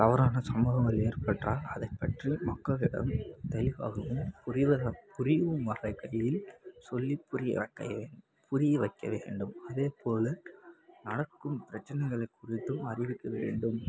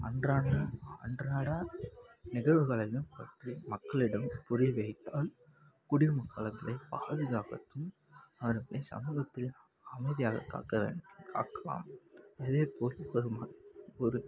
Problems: background sounds at intervals